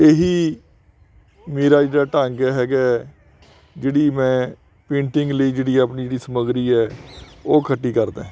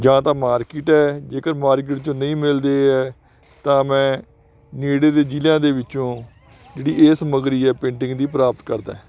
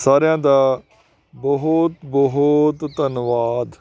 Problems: continuous background conversations